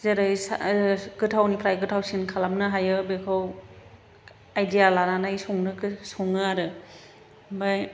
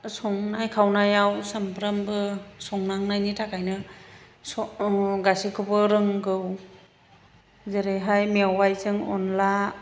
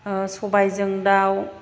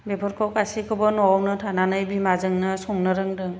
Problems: background sounds at intervals, low volume